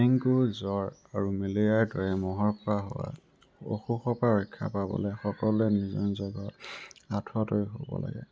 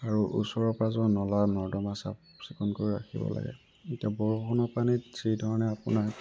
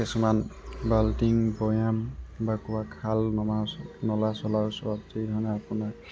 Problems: constant background noise, background conversations at intervals